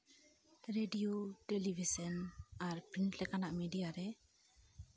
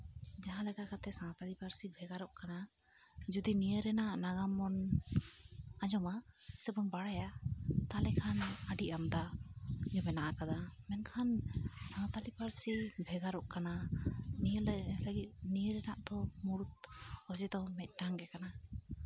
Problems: low volume